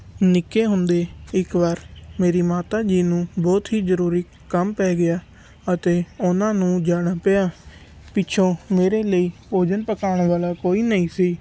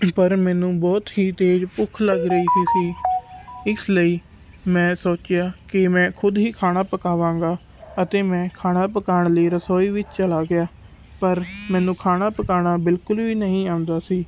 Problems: background sounds at intervals